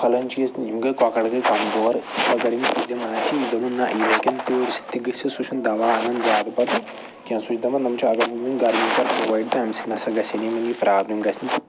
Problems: background sounds at intervals